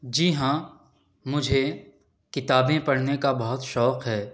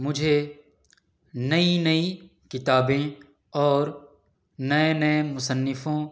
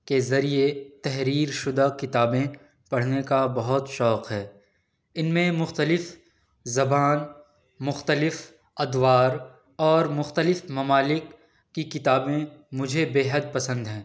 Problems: none marked